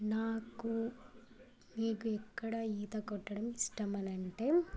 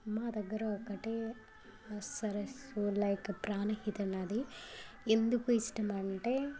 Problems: constant background noise, continuous background conversations